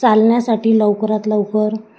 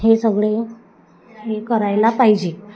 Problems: constant background noise, continuous background conversations